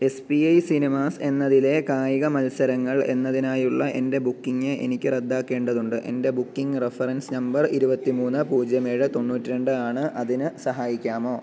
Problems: none marked